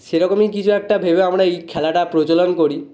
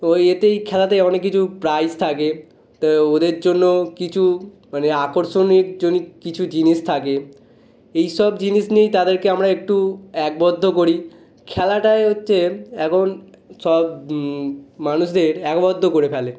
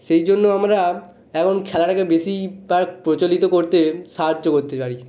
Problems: none marked